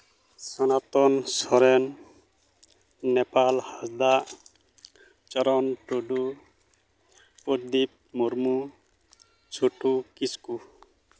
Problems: none marked